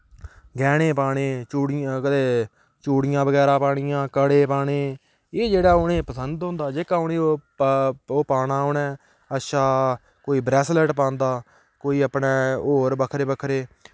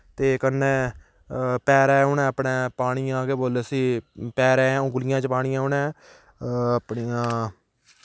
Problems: background sounds at intervals